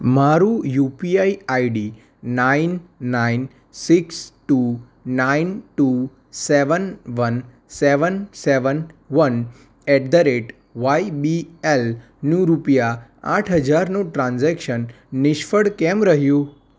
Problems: none marked